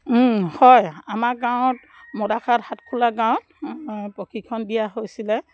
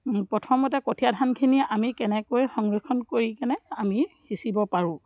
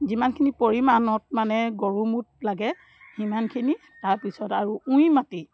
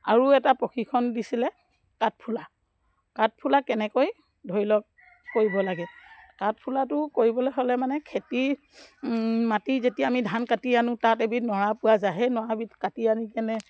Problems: background sounds at intervals